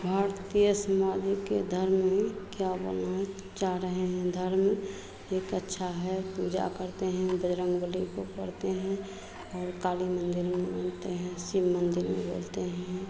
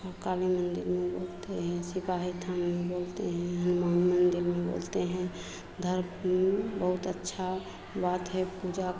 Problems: constant background noise, continuous background conversations